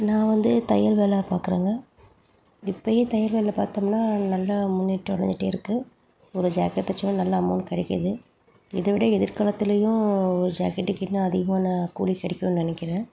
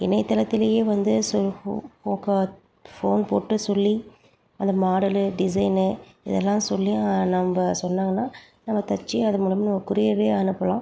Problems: background sounds at intervals